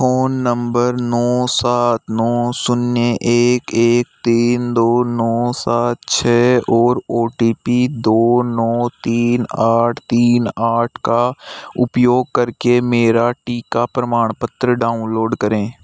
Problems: none marked